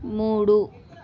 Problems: none marked